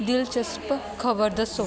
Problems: constant background noise